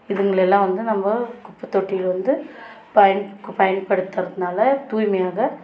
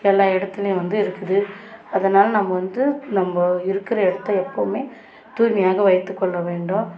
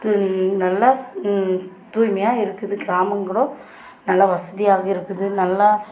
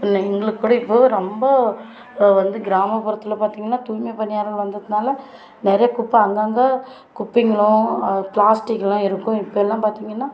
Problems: constant background noise, background conversations at intervals